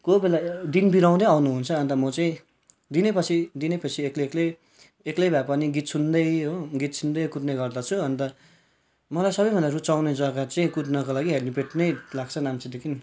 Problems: background sounds at intervals